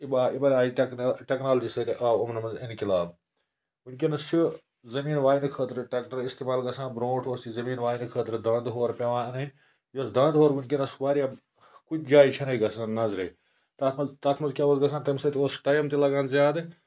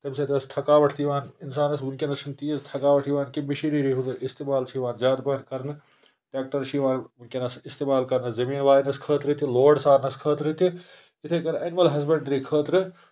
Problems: constant background noise